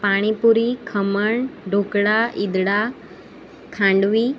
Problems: constant background noise